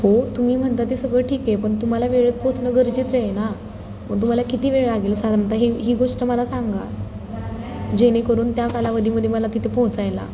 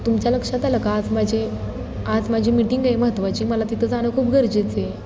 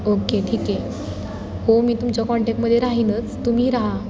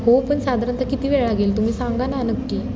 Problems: none marked